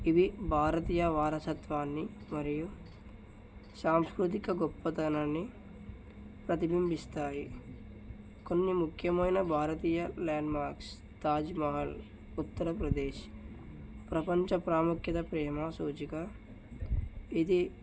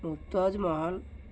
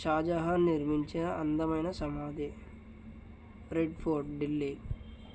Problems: none marked